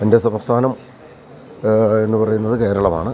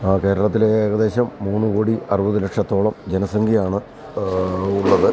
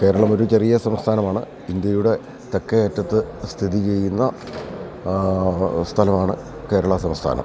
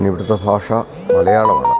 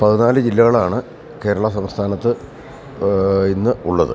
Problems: constant background noise, background conversations at intervals, low volume